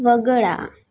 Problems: none marked